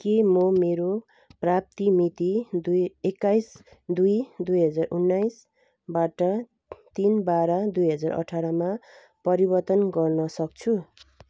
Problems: background sounds at intervals